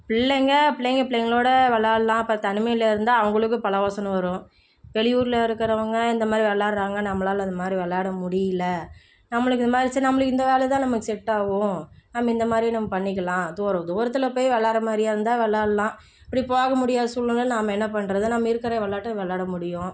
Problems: low volume